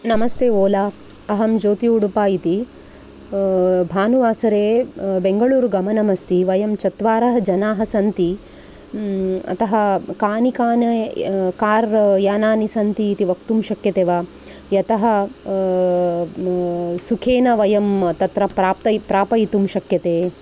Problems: none marked